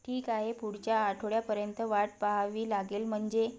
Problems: background conversations at intervals